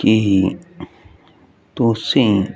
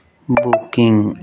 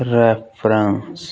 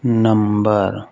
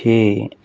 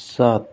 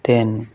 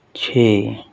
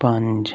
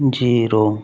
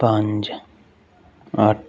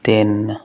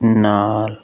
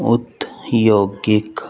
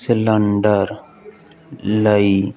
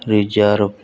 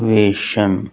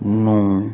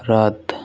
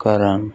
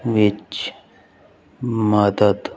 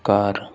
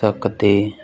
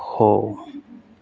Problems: background sounds at intervals, background conversations at intervals